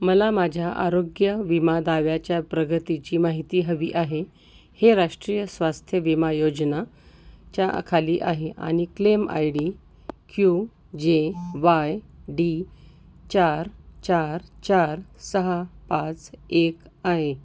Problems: none marked